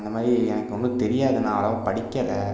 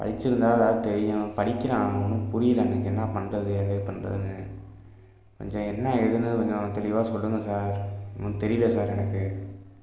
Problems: constant background noise